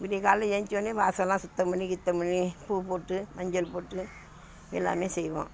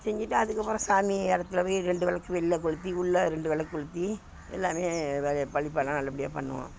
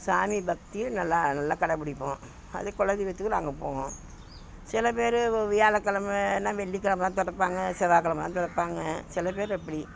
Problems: background sounds at intervals